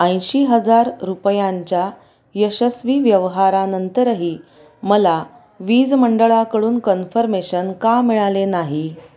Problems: none marked